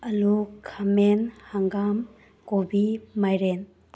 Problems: none marked